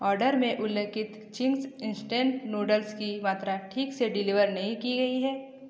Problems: echo